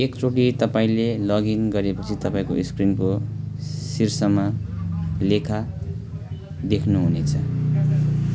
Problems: none marked